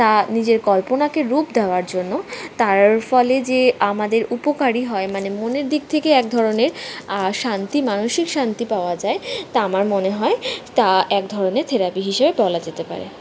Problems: background sounds at intervals